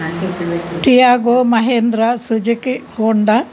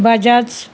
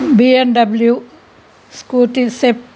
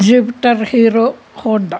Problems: constant background noise